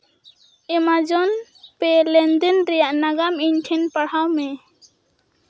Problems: background sounds at intervals